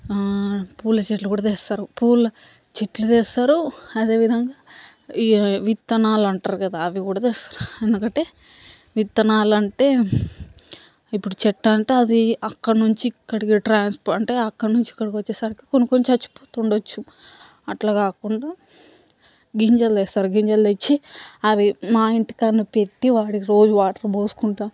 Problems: background sounds at intervals, background conversations at intervals